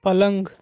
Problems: none marked